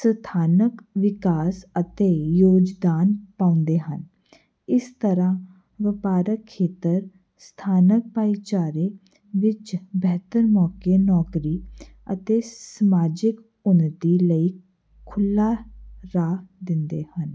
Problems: none marked